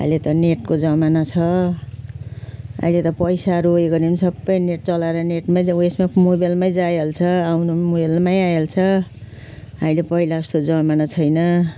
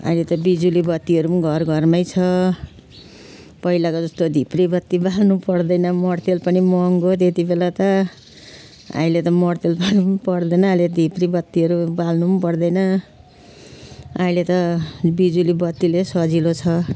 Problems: constant background noise